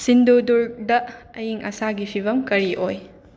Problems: background sounds at intervals